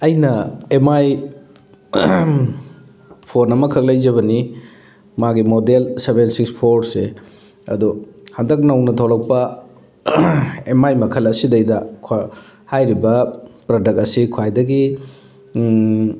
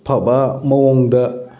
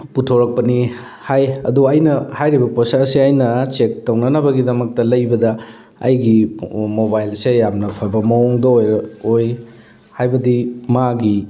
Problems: background sounds at intervals